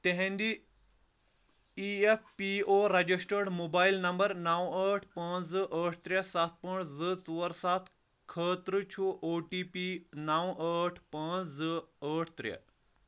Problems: none marked